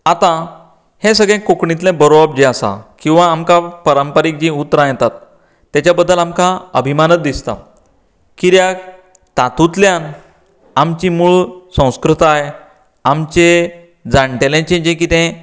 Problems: none marked